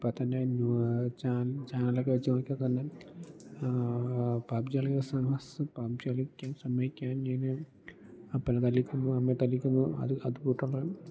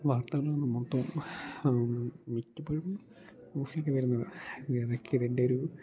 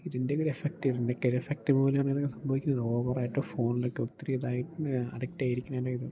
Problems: low volume